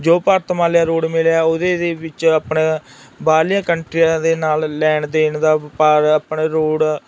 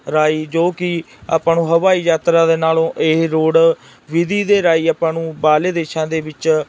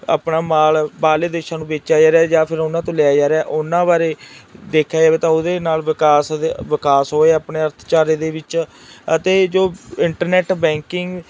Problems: constant background noise